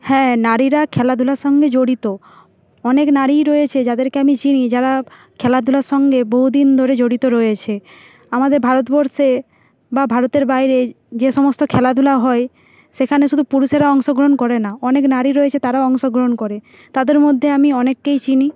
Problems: background sounds at intervals